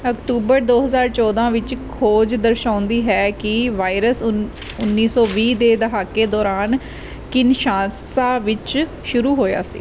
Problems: background conversations at intervals